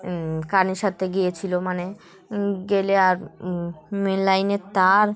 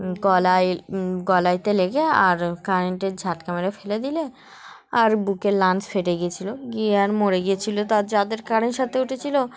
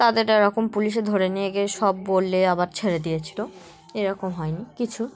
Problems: constant background noise, continuous background conversations